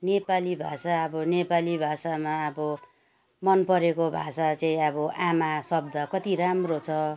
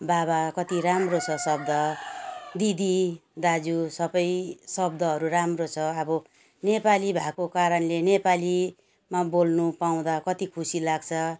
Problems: background sounds at intervals